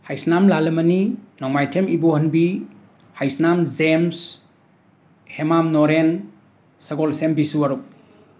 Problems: constant background noise